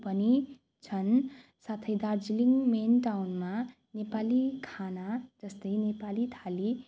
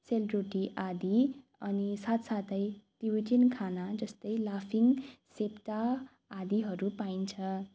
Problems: none marked